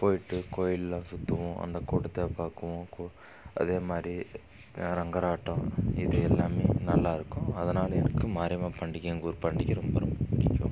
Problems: background sounds at intervals